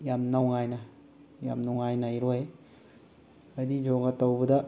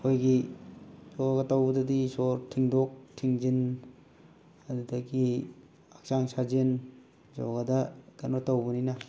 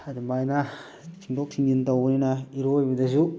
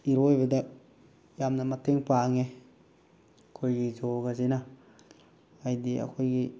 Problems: background sounds at intervals